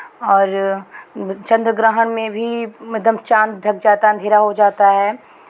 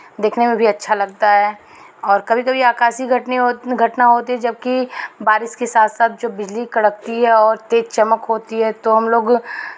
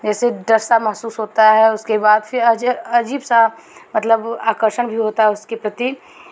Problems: constant background noise